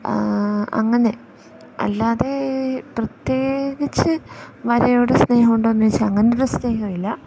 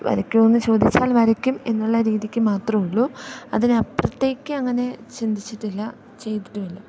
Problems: background sounds at intervals